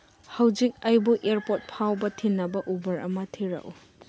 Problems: none marked